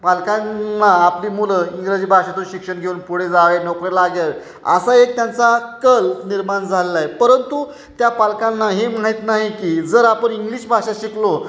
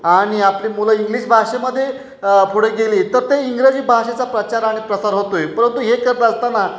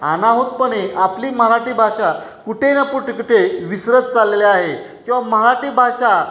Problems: none marked